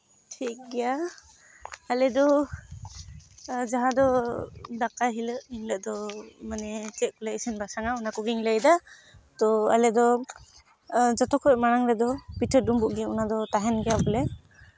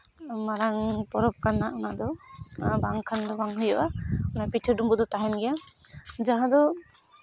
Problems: background sounds at intervals